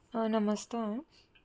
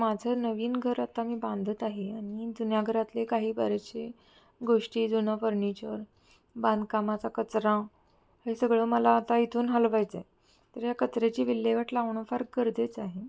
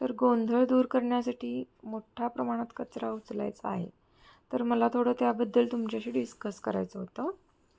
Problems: none marked